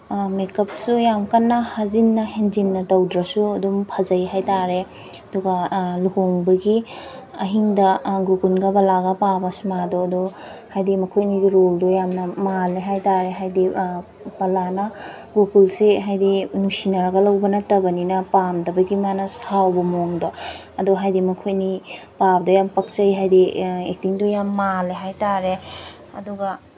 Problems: background sounds at intervals